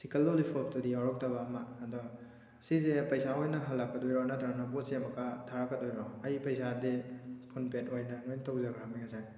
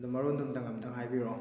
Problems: background sounds at intervals